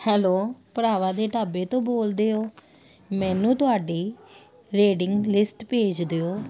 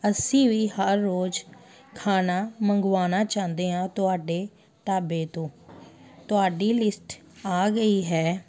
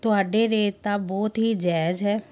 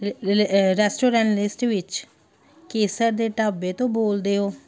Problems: background sounds at intervals